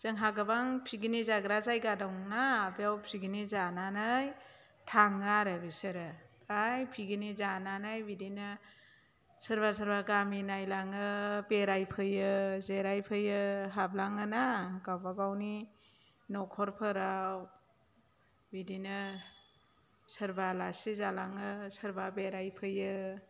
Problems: low volume